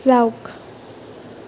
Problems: constant background noise